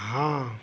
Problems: constant background noise